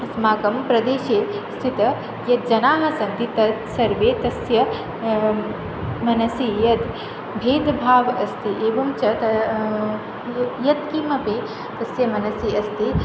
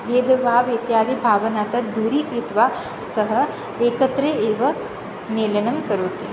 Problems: constant background noise